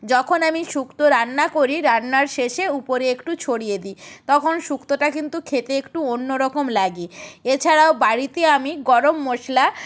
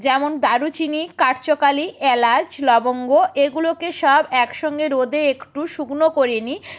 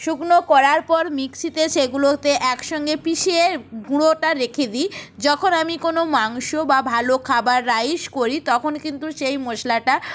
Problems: background sounds at intervals